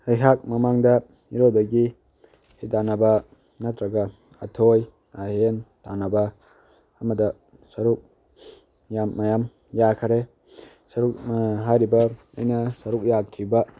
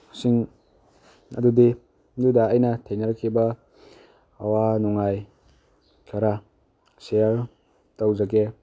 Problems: none marked